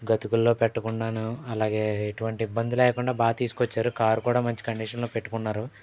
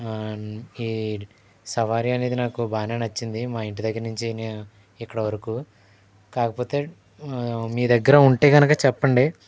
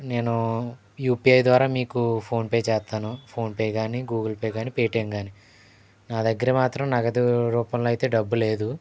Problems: background sounds at intervals